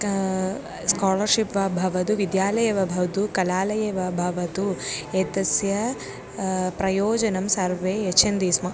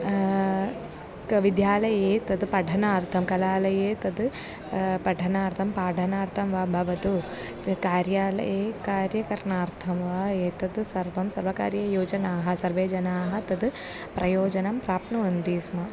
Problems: background sounds at intervals